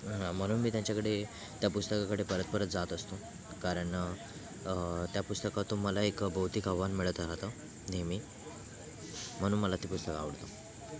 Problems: constant background noise, background conversations at intervals